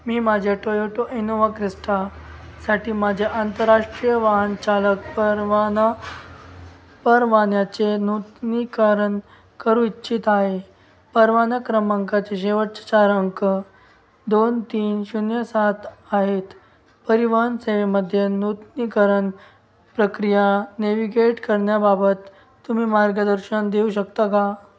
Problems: background sounds at intervals